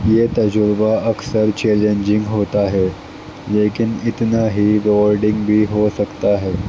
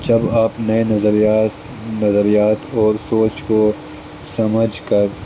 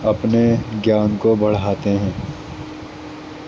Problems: constant background noise, low volume